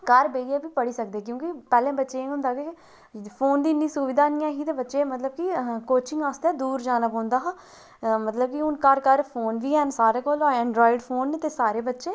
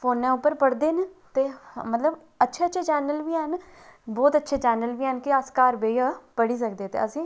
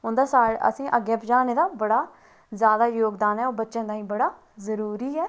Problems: none marked